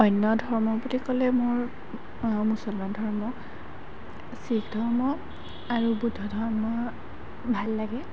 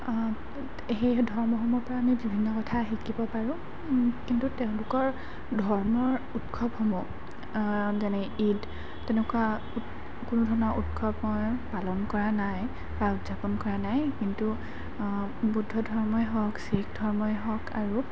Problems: background sounds at intervals